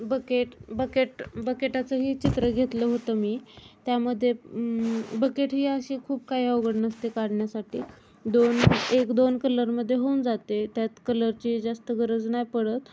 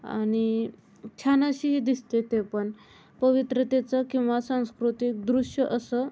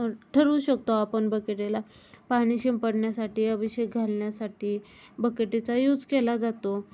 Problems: none marked